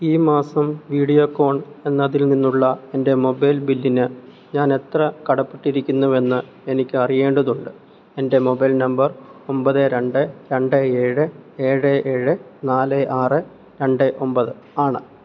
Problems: low volume